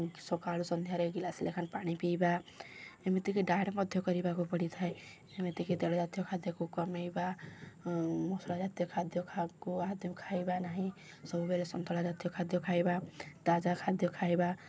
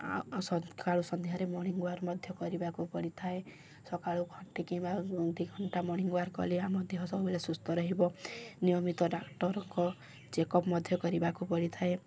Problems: none marked